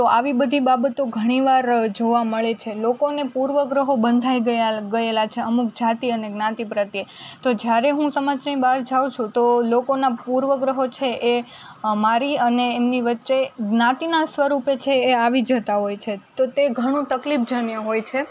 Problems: none marked